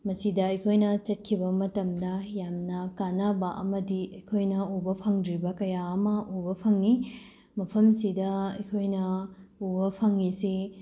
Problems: none marked